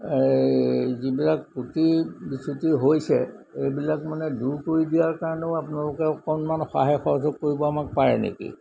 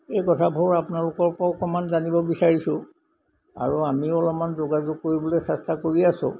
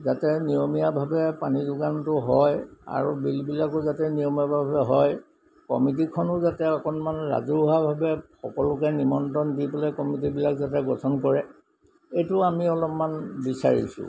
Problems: none marked